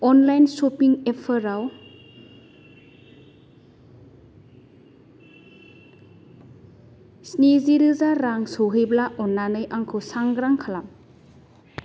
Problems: background sounds at intervals